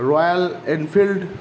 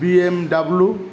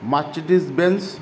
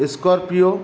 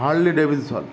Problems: none marked